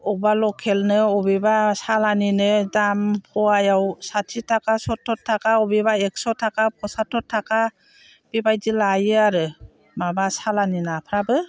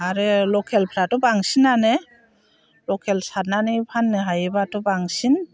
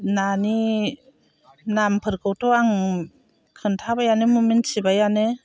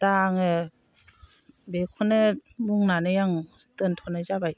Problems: constant background noise